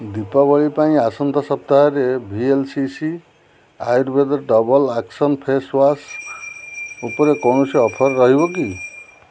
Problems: constant background noise